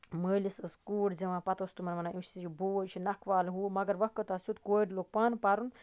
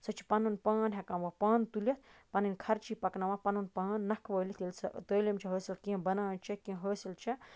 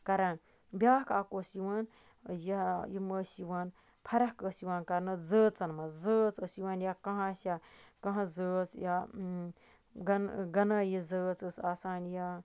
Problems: none marked